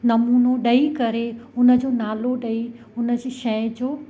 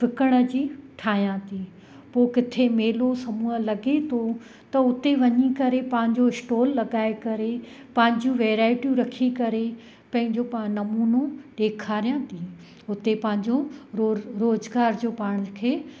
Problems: constant background noise, echo